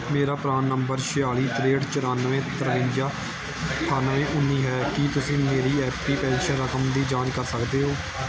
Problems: background sounds at intervals